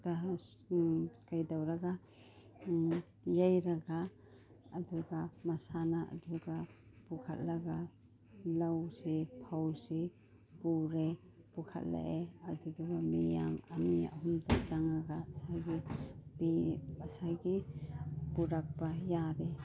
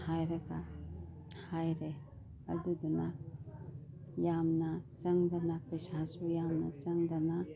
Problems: none marked